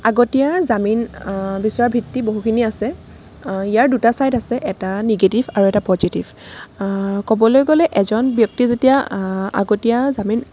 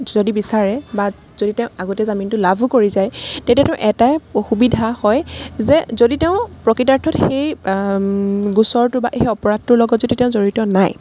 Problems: background sounds at intervals